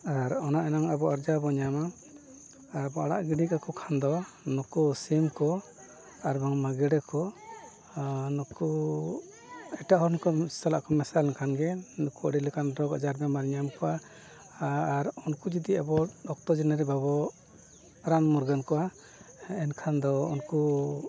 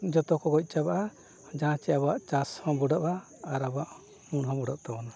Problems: background sounds at intervals, background conversations at intervals, low volume